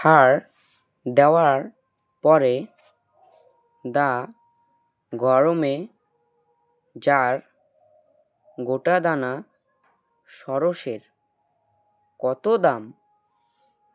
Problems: constant background noise